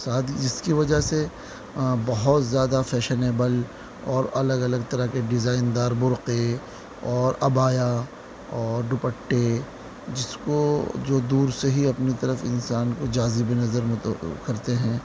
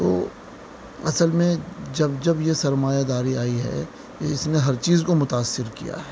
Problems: constant background noise